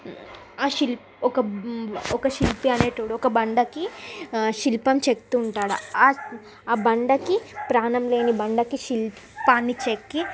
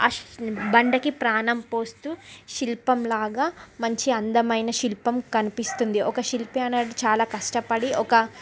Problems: constant background noise, background conversations at intervals